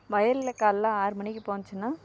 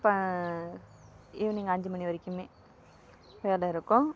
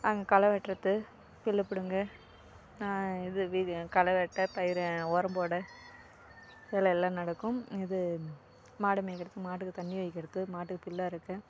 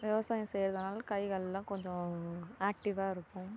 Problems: none marked